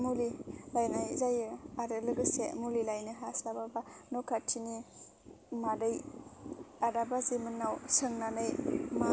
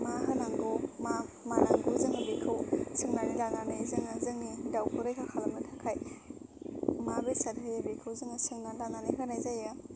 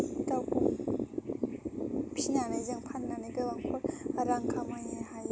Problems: constant background noise